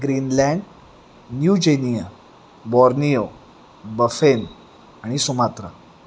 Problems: constant background noise